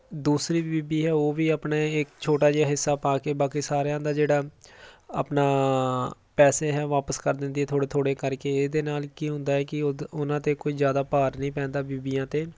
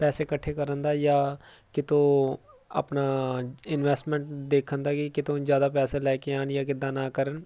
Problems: none marked